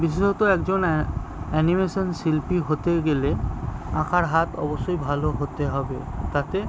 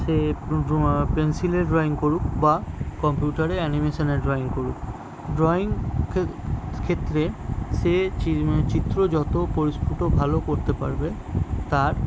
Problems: constant background noise